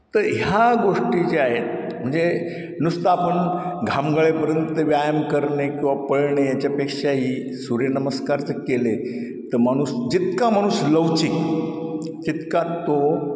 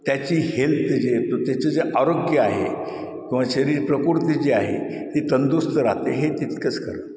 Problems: constant background noise, echo